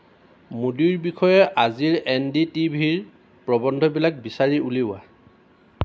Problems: constant background noise